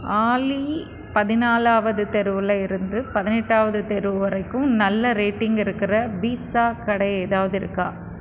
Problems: constant background noise